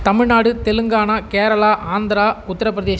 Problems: constant background noise